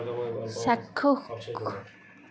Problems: continuous background conversations